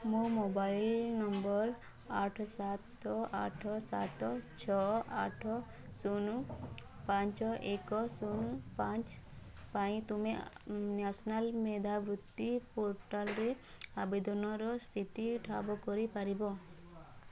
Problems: low volume